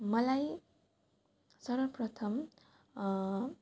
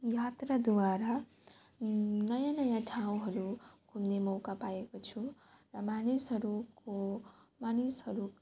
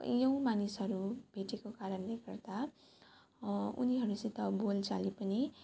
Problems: background sounds at intervals